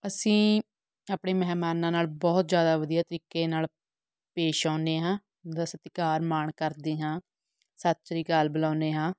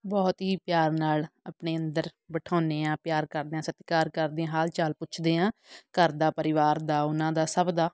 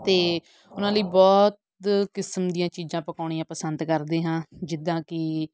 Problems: background sounds at intervals